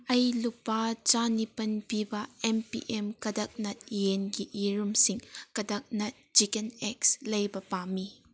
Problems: none marked